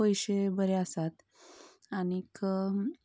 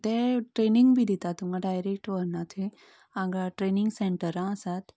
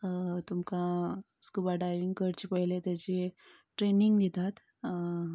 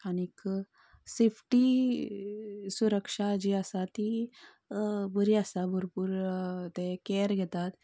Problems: none marked